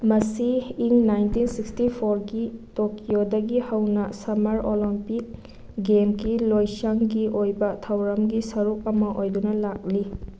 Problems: none marked